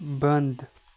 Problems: background sounds at intervals